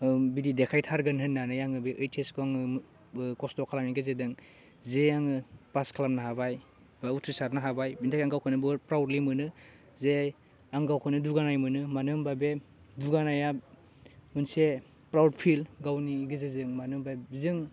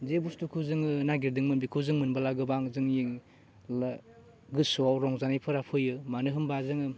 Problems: constant background noise